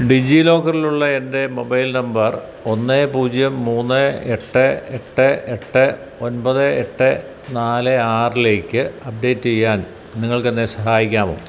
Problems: none marked